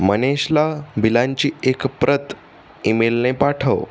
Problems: constant background noise